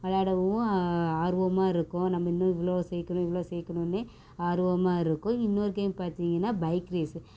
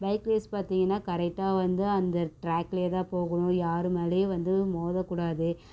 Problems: constant background noise